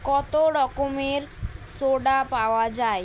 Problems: none marked